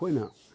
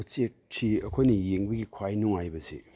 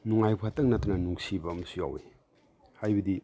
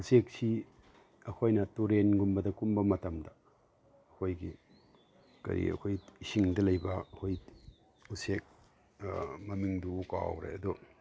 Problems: none marked